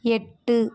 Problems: background conversations at intervals